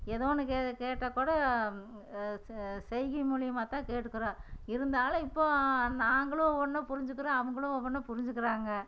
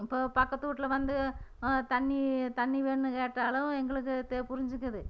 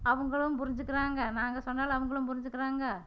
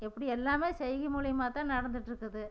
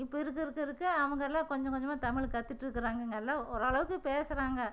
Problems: none marked